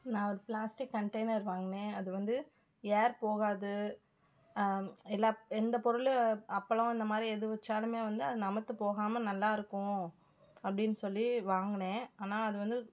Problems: none marked